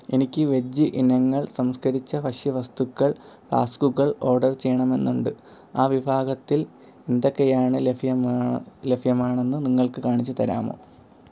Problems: none marked